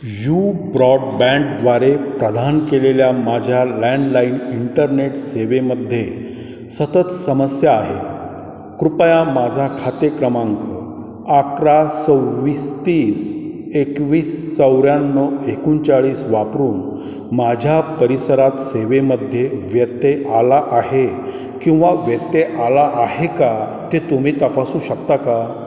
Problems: background sounds at intervals